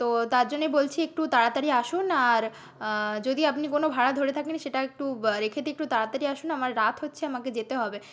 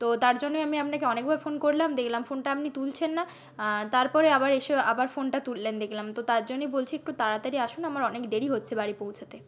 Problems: none marked